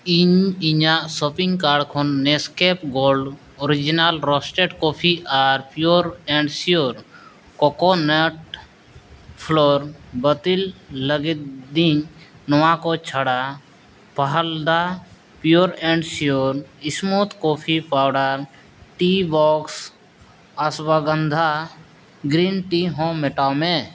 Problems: background sounds at intervals